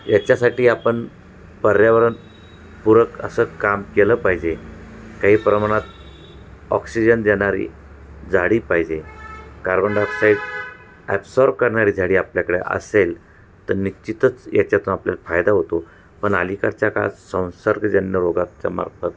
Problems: none marked